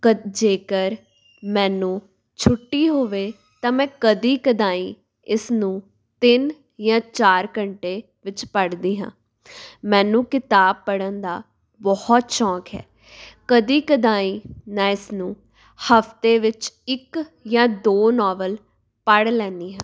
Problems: background sounds at intervals